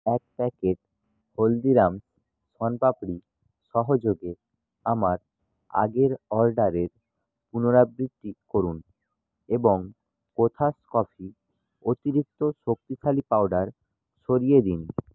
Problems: none marked